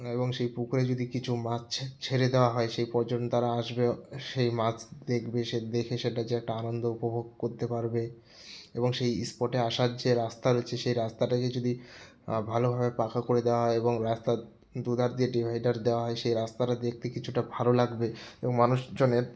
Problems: none marked